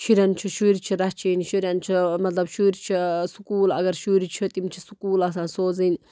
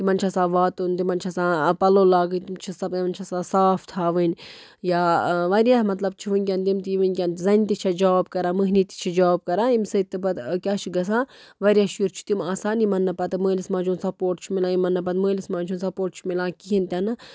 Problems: none marked